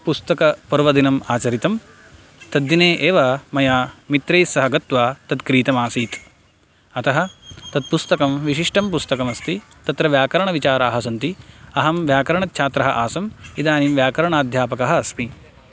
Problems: constant background noise